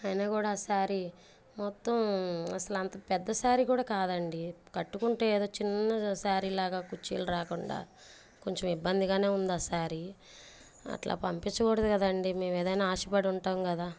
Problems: none marked